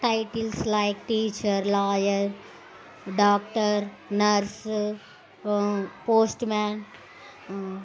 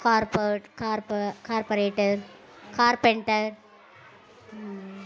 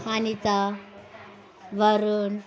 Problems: constant background noise